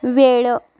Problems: background sounds at intervals